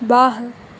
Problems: constant background noise